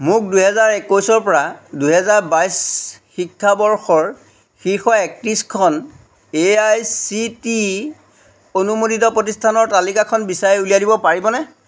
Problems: background sounds at intervals